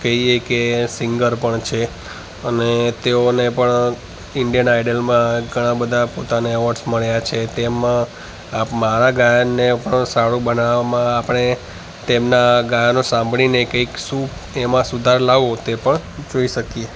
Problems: constant background noise, echo